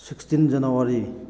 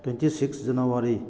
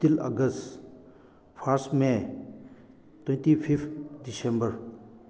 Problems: constant background noise